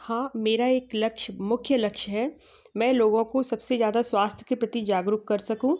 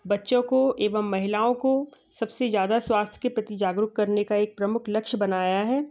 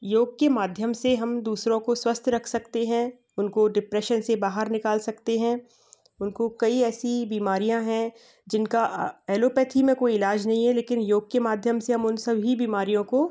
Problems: background sounds at intervals